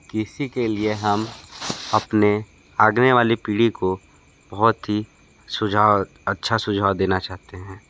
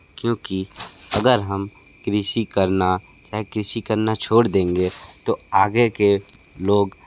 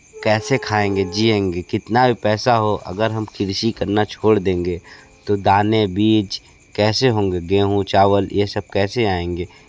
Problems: constant background noise